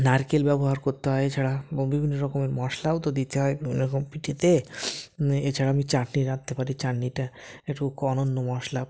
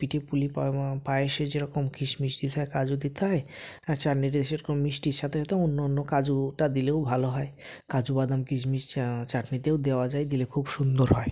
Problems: background sounds at intervals